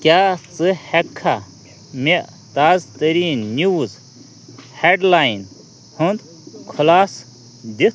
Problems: constant background noise, continuous background conversations